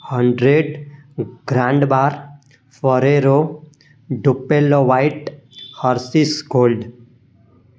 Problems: constant background noise